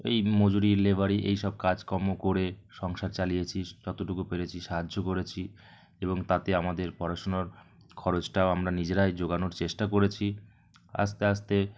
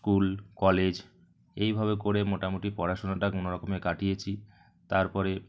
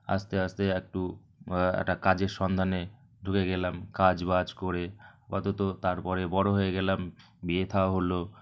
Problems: none marked